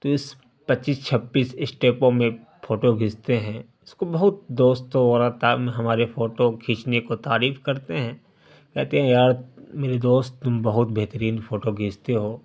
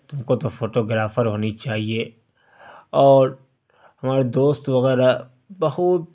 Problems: constant background noise